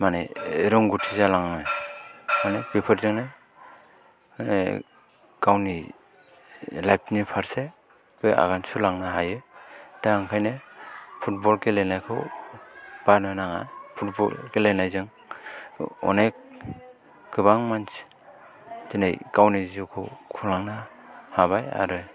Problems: background sounds at intervals, continuous background conversations